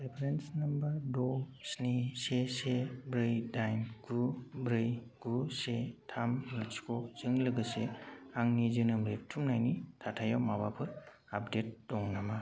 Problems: none marked